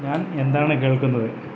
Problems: constant background noise